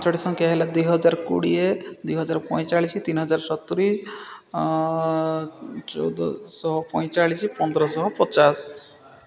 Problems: constant background noise, continuous background conversations